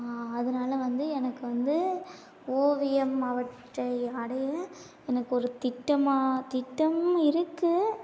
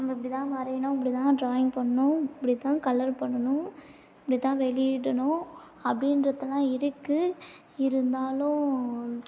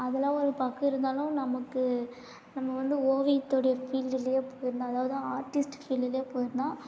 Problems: none marked